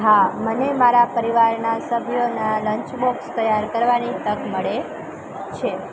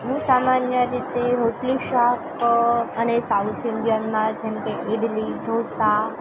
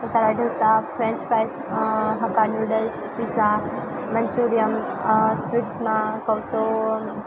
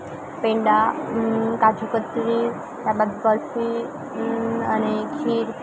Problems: constant background noise, continuous background conversations